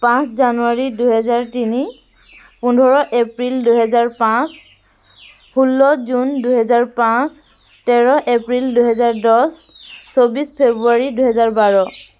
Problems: constant background noise